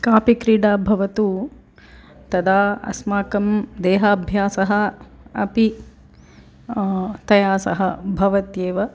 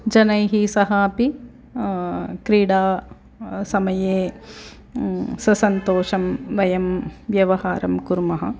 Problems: background conversations at intervals